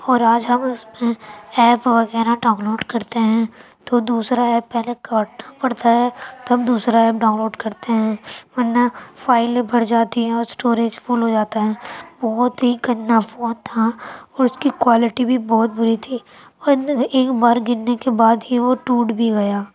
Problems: background sounds at intervals